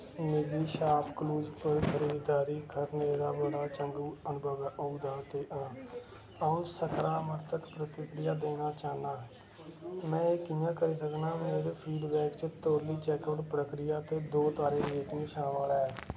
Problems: constant background noise, low volume